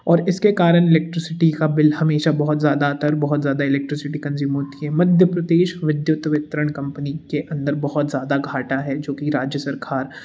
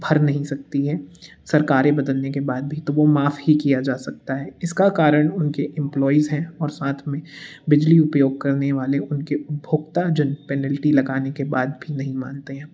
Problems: background sounds at intervals